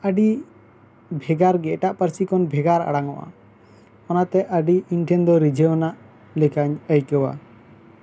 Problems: constant background noise